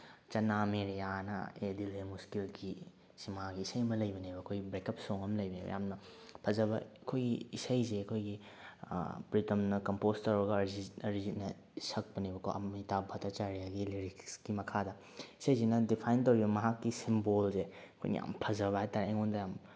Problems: none marked